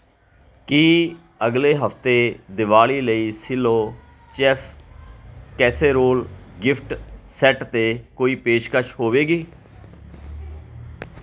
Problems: continuous background conversations